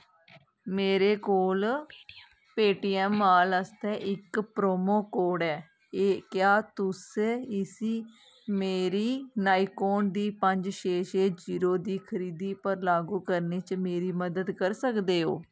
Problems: low volume